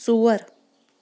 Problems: background sounds at intervals